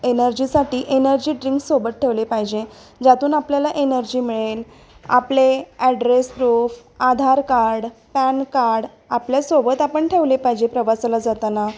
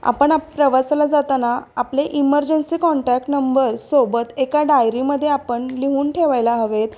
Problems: constant background noise